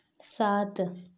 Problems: background sounds at intervals